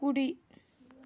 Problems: none marked